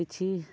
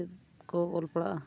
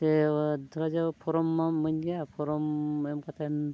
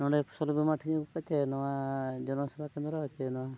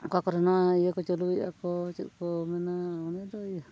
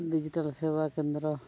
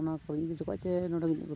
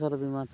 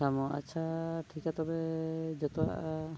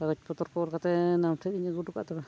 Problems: none marked